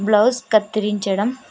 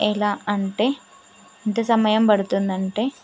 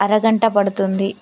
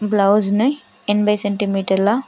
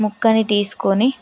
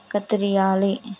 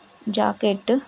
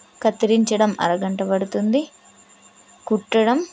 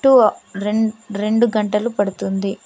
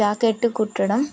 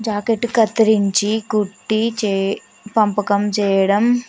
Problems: constant background noise